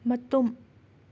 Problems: none marked